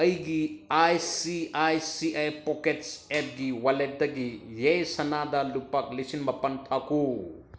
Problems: none marked